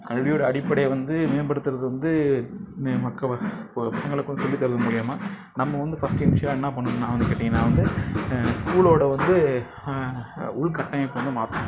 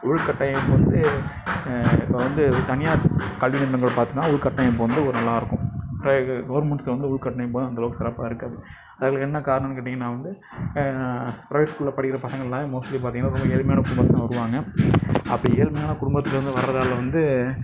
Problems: background sounds at intervals